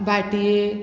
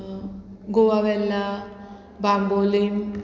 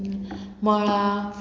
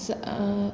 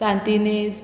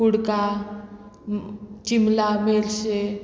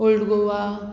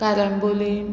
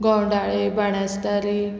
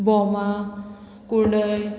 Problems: constant background noise